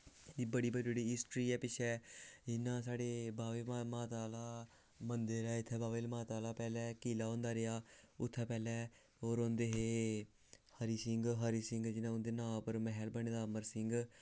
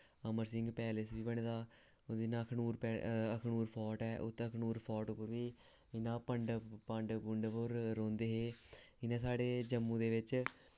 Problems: constant background noise